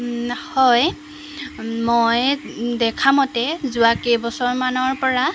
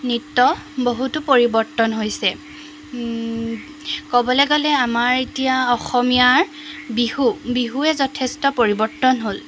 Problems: background sounds at intervals